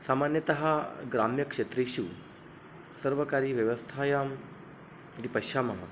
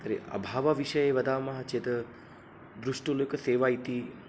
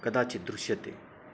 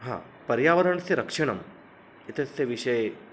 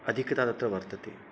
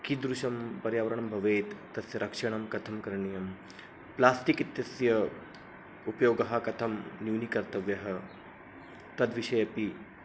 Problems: background sounds at intervals